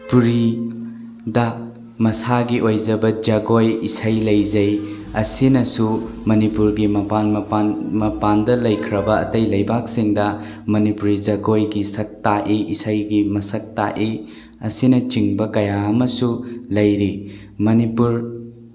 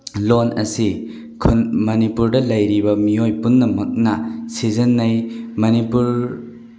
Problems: none marked